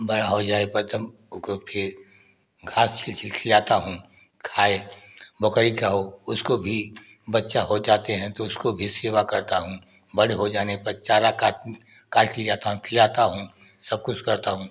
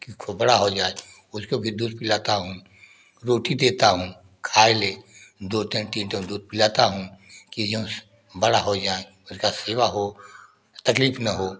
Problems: none marked